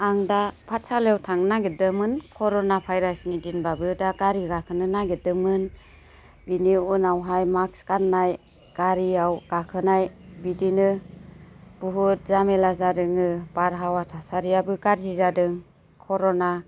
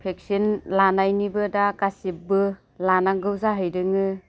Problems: constant background noise